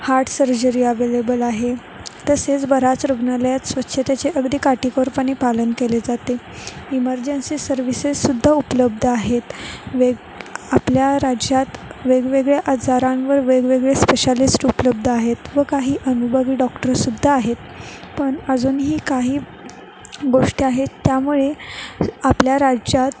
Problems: none marked